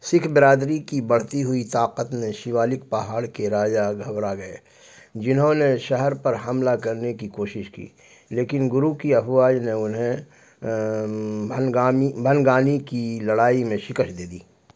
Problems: none marked